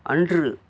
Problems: none marked